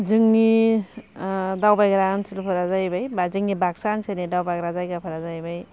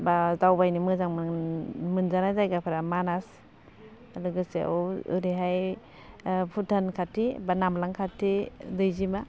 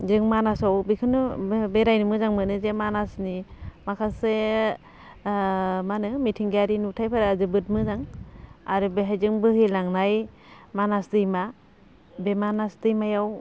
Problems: constant background noise